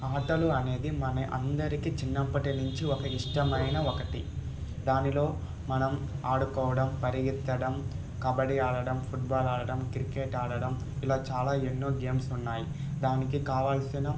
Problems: constant background noise, background conversations at intervals